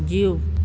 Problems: constant background noise